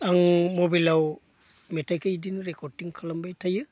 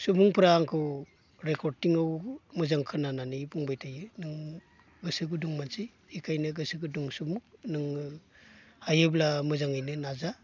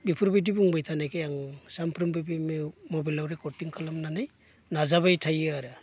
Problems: constant background noise